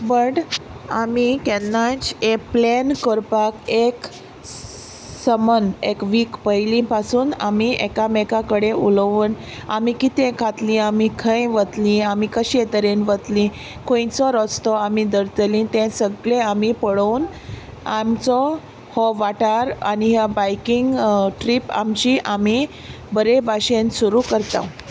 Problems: none marked